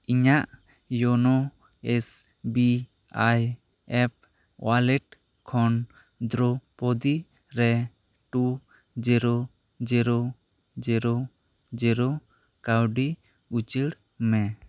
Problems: constant background noise